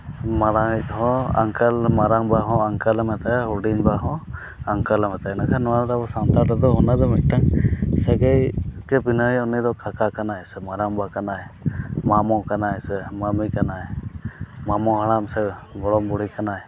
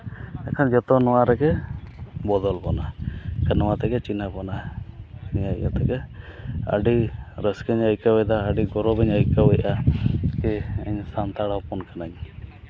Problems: none marked